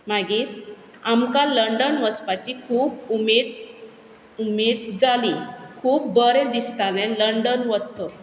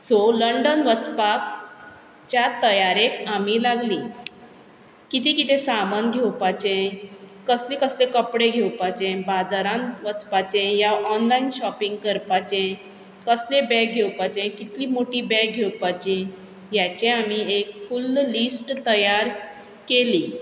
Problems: background sounds at intervals